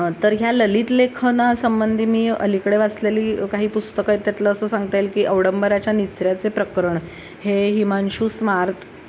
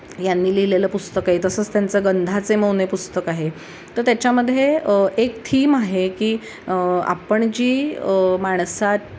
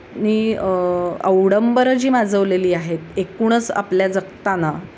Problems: none marked